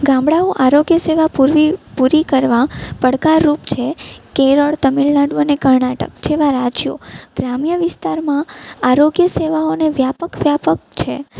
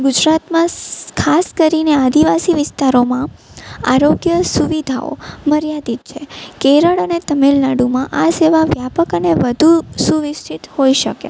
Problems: none marked